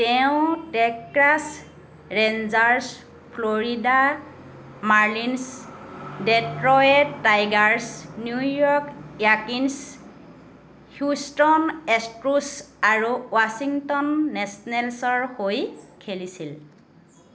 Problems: none marked